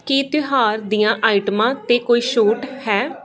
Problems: background conversations at intervals